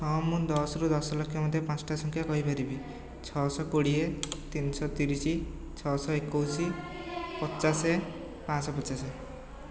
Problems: background conversations at intervals